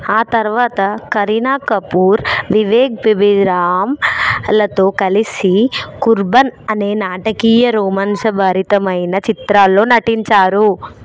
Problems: background conversations at intervals